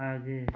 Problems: constant background noise